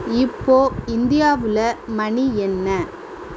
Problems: background sounds at intervals